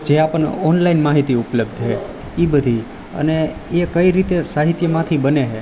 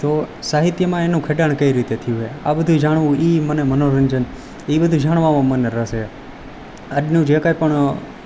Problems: none marked